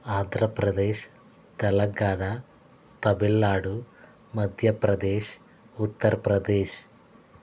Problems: constant background noise